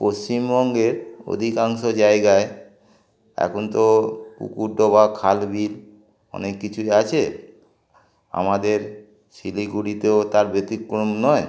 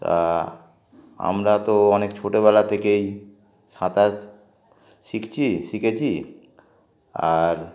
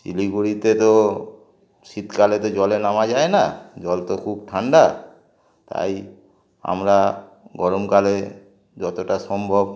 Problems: constant background noise, continuous background conversations